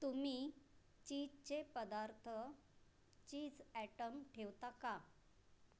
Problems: low volume